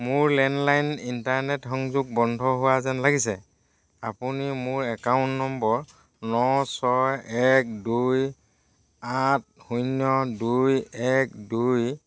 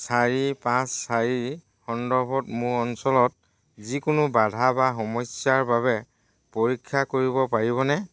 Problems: none marked